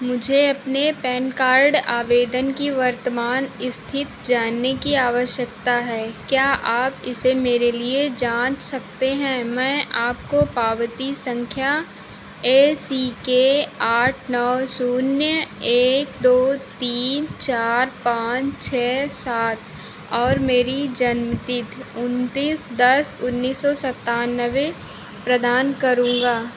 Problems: constant background noise